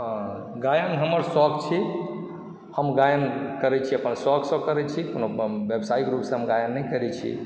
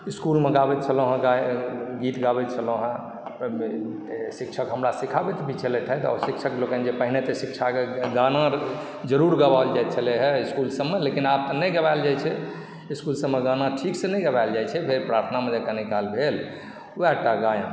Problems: background sounds at intervals